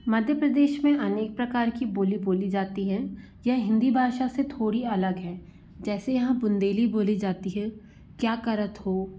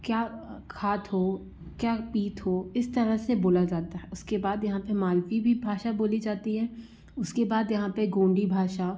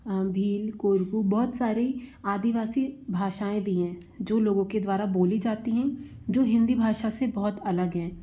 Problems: constant background noise